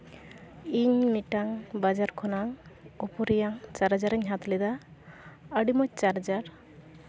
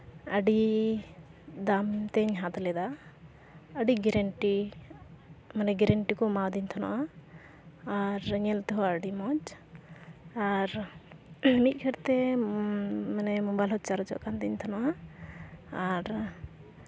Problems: constant background noise, background conversations at intervals